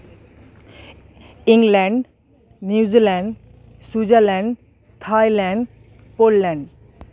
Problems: constant background noise, background conversations at intervals